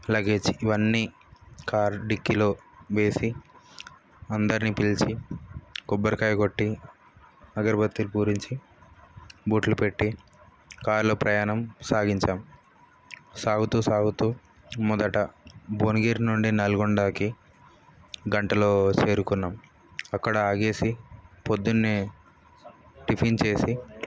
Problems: background sounds at intervals